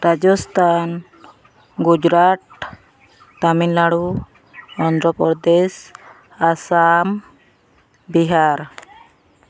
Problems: background sounds at intervals, background conversations at intervals